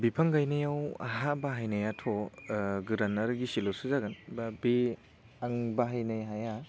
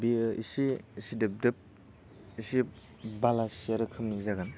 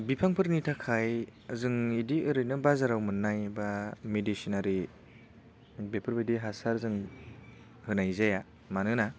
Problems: low volume